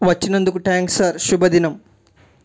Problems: none marked